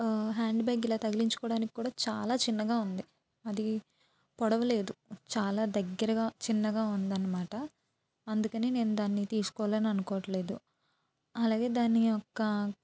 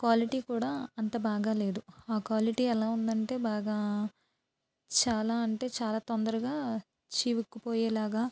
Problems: none marked